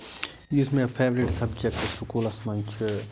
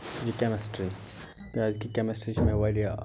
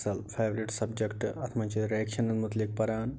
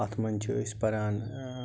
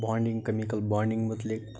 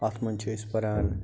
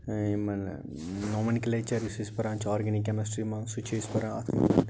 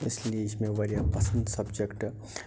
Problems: constant background noise